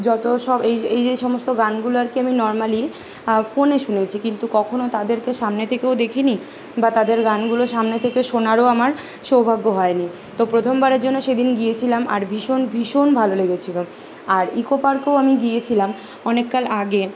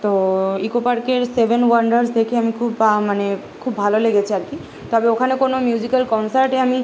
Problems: none marked